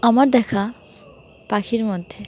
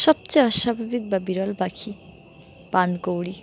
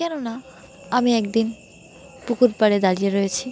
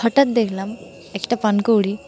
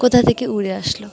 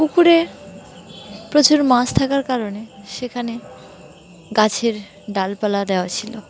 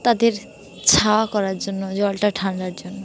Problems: none marked